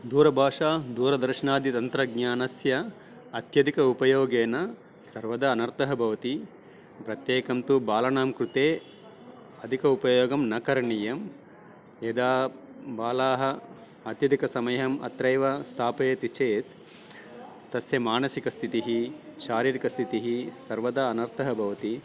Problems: background sounds at intervals, background conversations at intervals